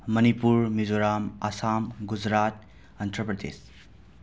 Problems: none marked